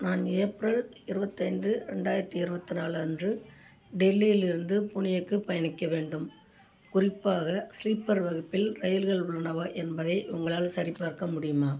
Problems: none marked